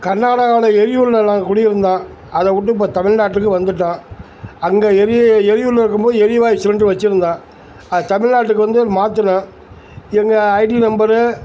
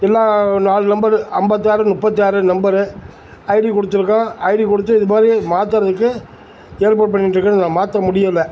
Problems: constant background noise